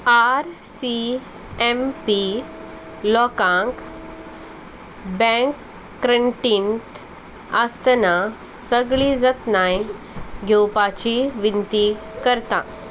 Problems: none marked